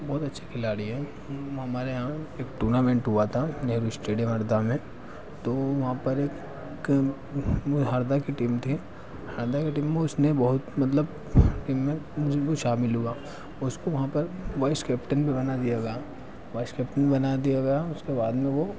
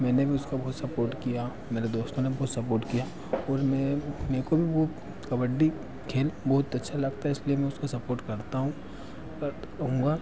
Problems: background sounds at intervals, background conversations at intervals